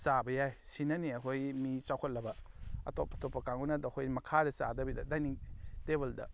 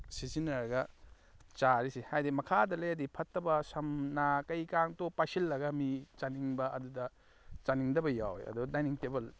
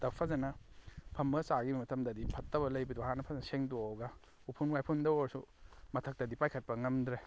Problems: background sounds at intervals